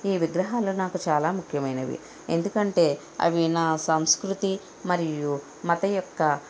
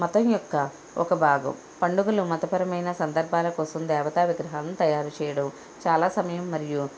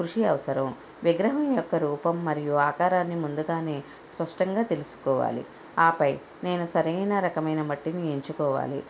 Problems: none marked